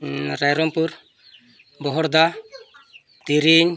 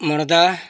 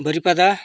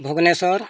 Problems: constant background noise